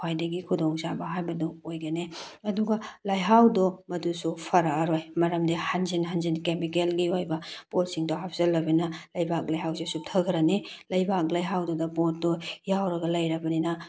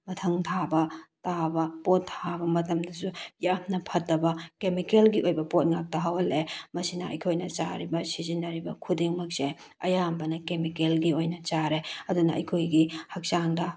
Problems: none marked